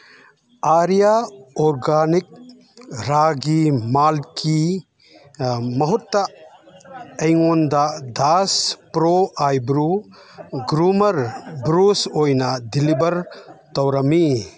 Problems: background conversations at intervals